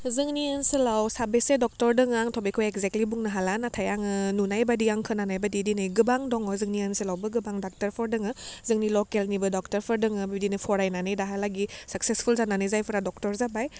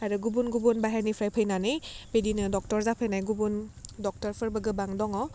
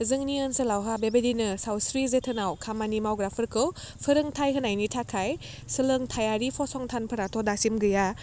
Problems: none marked